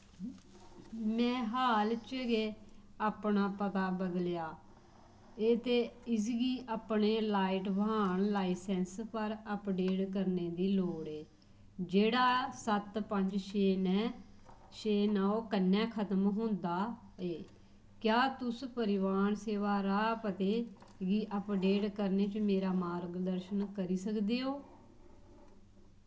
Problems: low volume